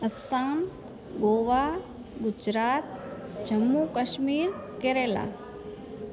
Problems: constant background noise